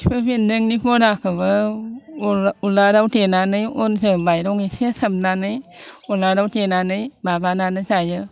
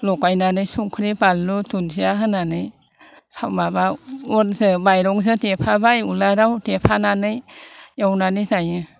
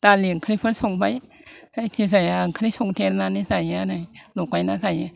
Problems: none marked